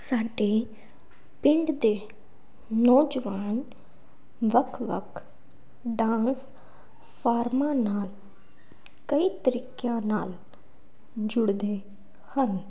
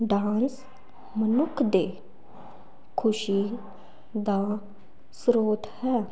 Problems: background sounds at intervals